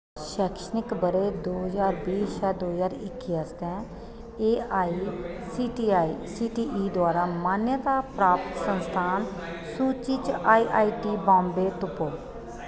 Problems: constant background noise, echo